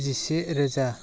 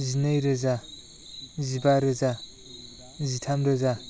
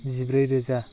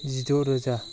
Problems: constant background noise